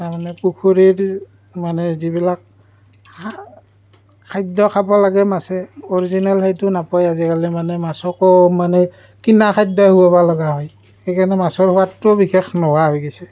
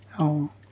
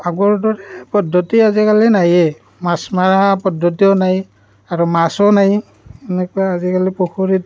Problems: background sounds at intervals